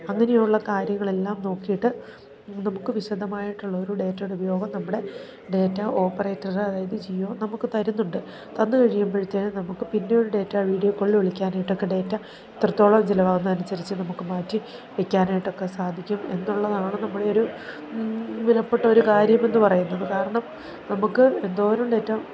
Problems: continuous background conversations, low volume